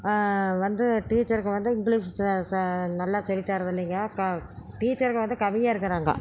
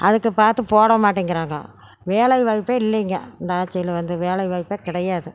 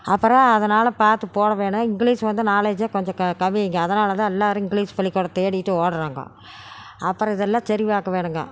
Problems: background conversations at intervals